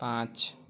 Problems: none marked